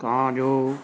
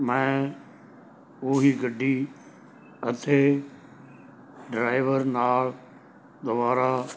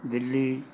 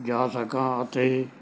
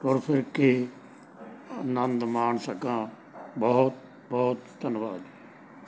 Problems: none marked